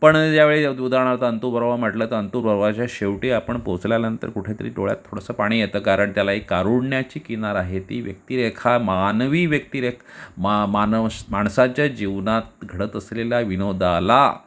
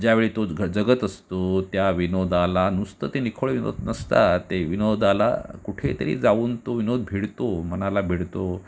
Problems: none marked